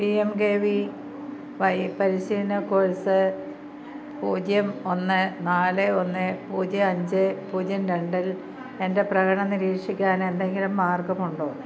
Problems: none marked